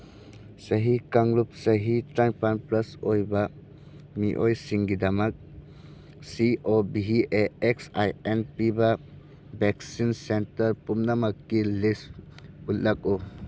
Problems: background sounds at intervals